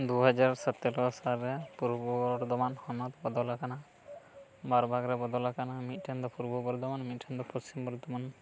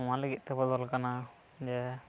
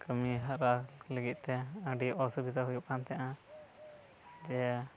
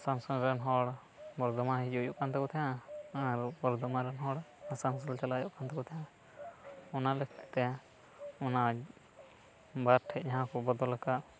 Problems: background sounds at intervals, low volume